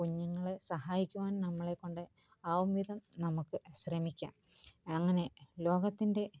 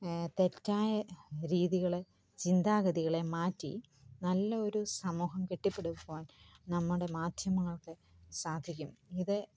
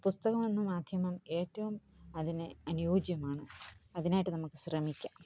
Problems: low volume